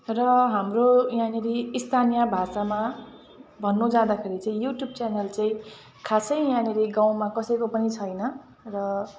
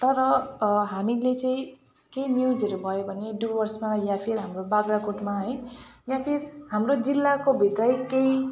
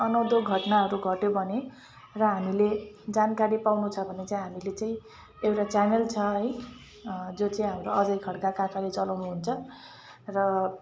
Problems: background sounds at intervals